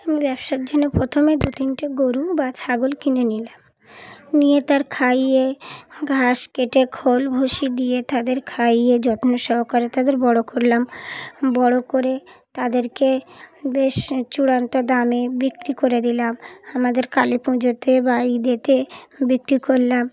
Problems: background sounds at intervals, background conversations at intervals